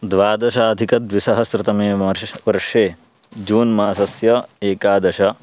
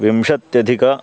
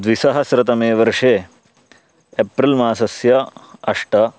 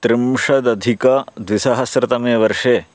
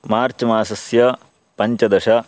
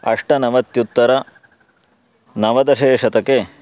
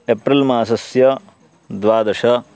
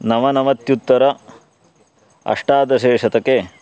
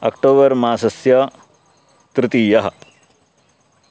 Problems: constant background noise